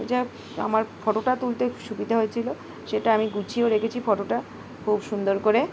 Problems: background sounds at intervals